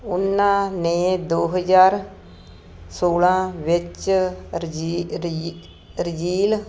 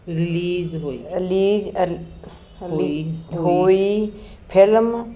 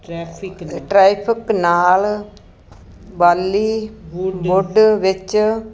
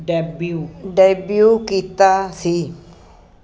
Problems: background conversations at intervals